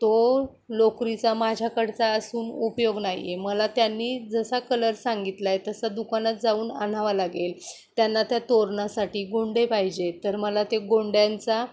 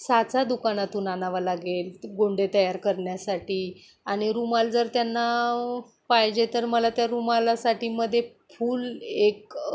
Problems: background sounds at intervals